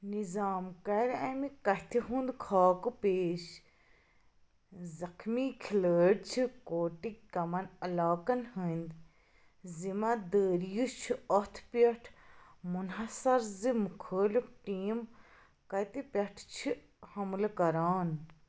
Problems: background sounds at intervals